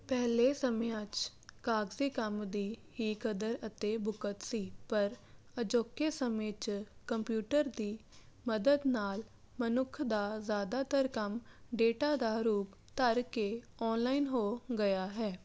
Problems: none marked